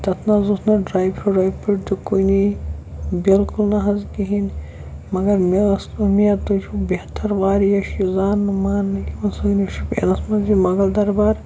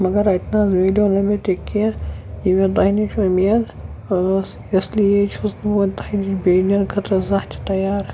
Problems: constant background noise